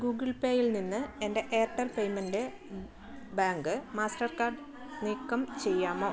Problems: none marked